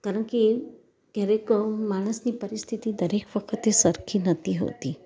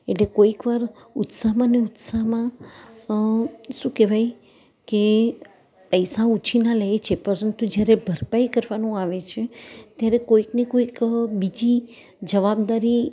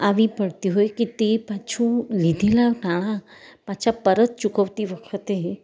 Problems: none marked